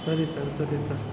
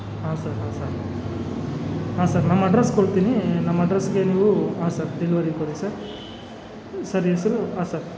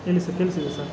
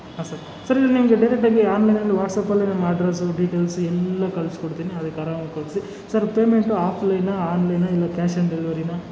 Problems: none marked